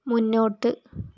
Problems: low volume